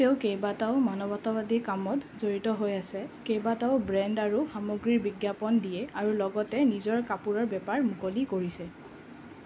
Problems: constant background noise